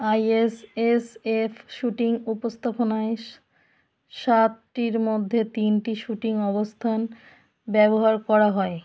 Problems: background sounds at intervals